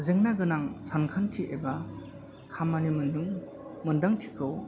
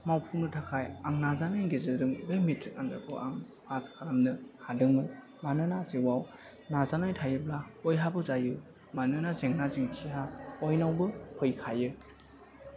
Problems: background sounds at intervals